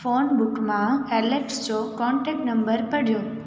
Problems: constant background noise, echo